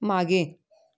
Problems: background conversations at intervals